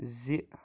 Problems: none marked